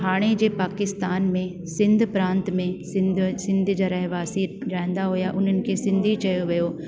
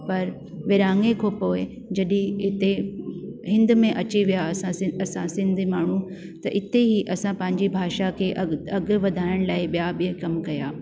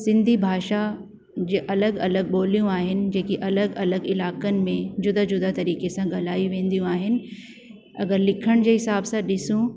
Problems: constant background noise